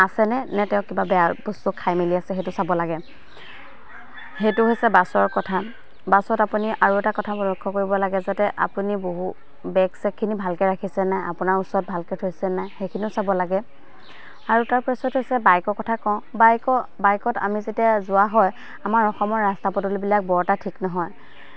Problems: constant background noise, background conversations at intervals